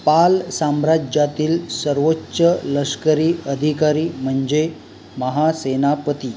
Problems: none marked